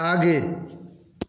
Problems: echo